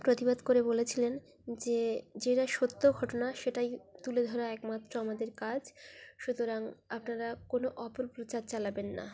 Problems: constant background noise, continuous background conversations